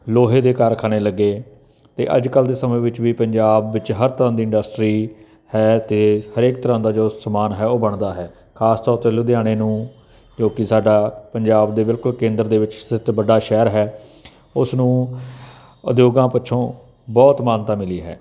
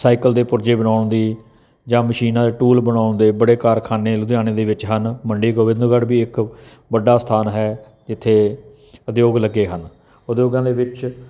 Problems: none marked